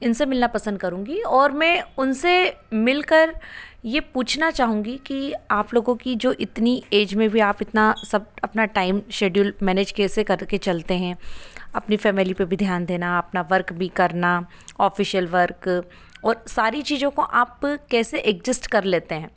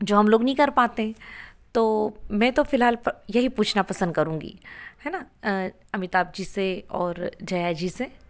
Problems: background sounds at intervals